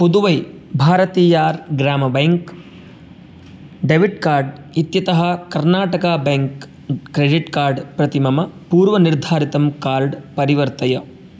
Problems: none marked